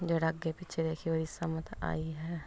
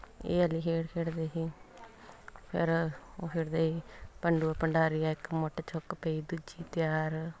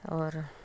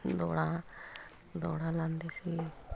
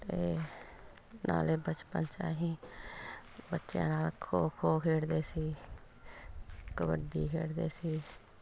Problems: background sounds at intervals